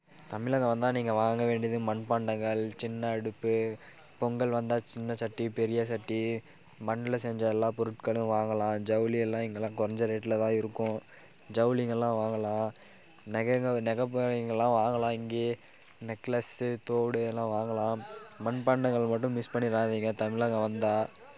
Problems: background conversations at intervals